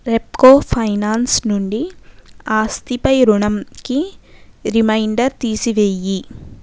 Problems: none marked